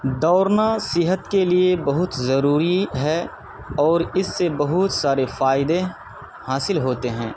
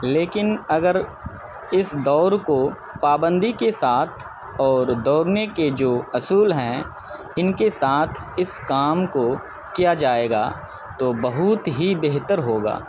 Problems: constant background noise